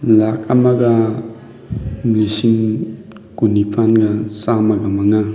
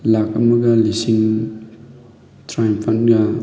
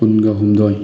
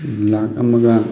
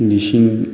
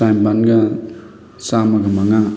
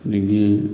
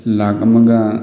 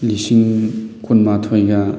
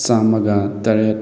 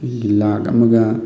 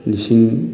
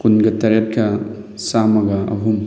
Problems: background sounds at intervals, background conversations at intervals